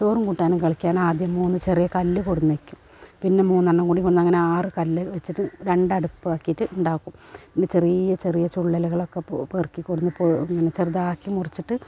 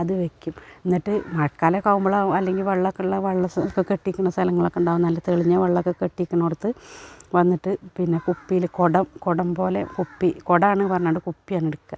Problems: none marked